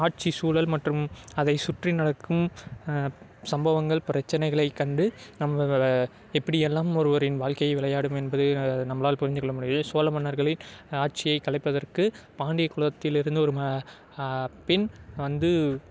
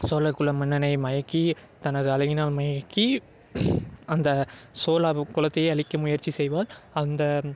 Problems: background sounds at intervals